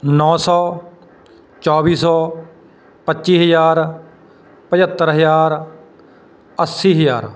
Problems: none marked